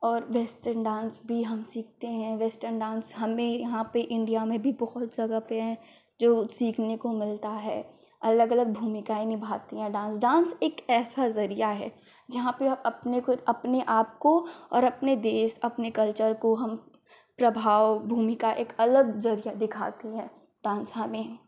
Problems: none marked